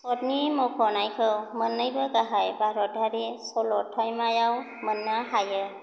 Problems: none marked